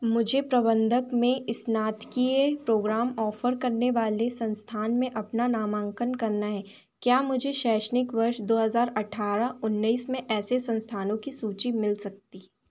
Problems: none marked